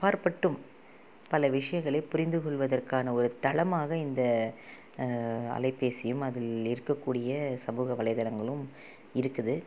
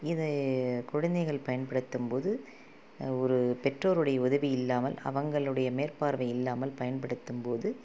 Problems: constant background noise